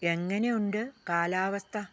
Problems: low volume